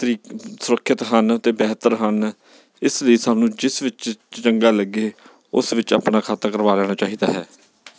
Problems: background sounds at intervals